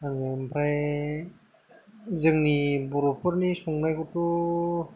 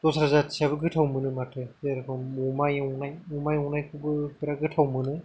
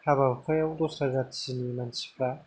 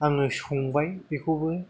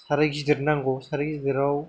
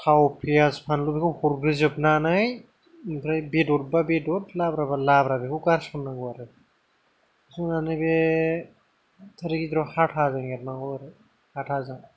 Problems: low volume